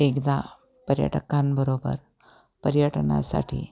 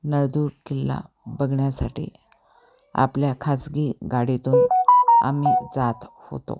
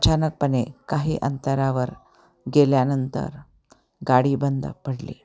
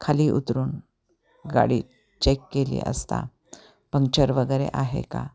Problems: constant background noise, background conversations at intervals